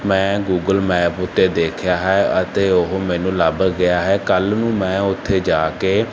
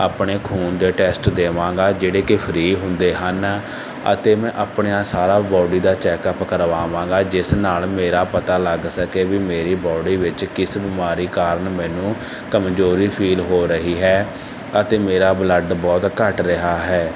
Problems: constant background noise